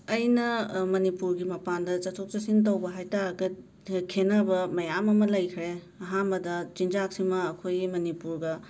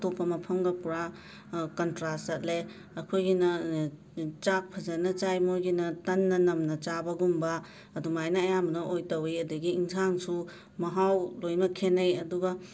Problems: background sounds at intervals